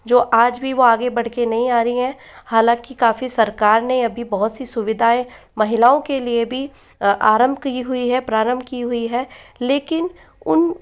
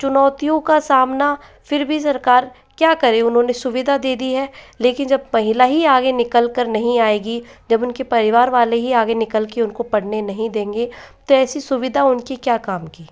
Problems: background sounds at intervals, echo